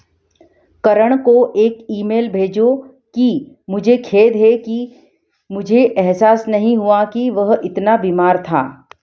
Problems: background sounds at intervals